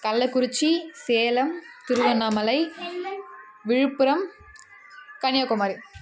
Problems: continuous background conversations